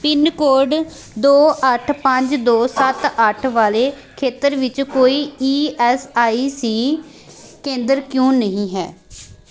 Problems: background sounds at intervals